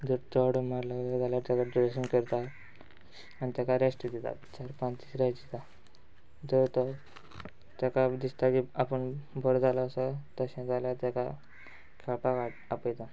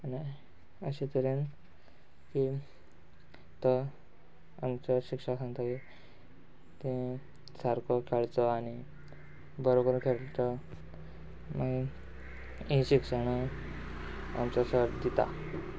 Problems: background sounds at intervals